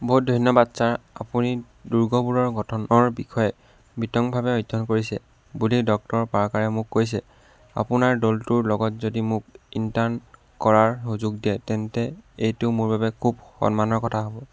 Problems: background sounds at intervals